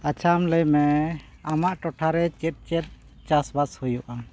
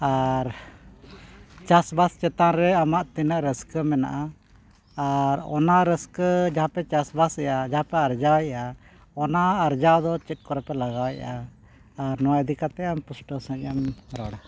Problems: none marked